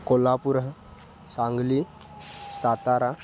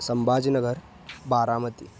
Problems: background sounds at intervals